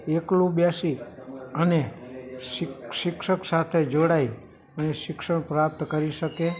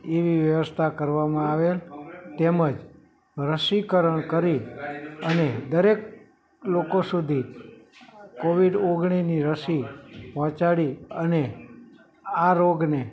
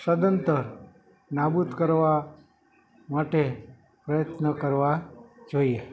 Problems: background conversations at intervals